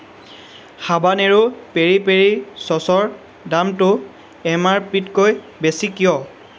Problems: none marked